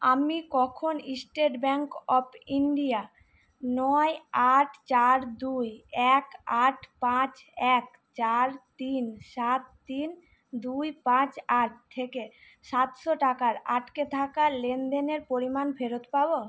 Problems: none marked